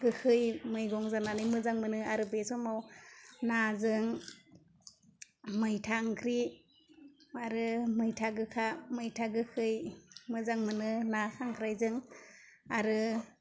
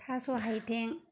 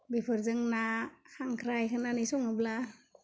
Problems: constant background noise